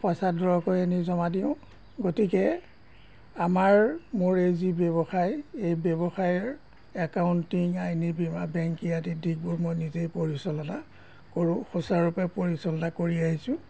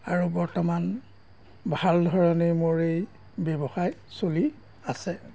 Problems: background sounds at intervals